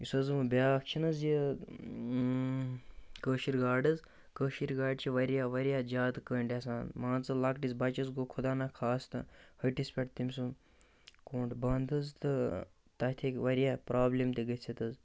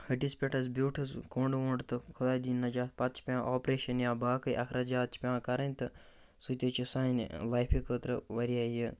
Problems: constant background noise